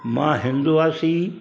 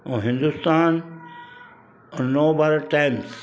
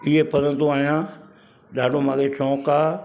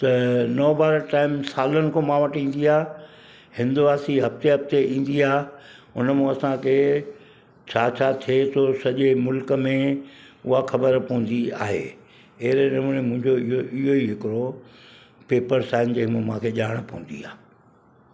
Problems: constant background noise